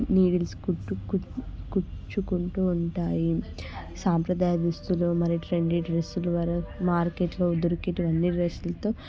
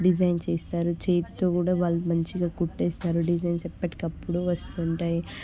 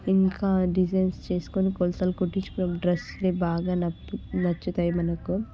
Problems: constant background noise, background conversations at intervals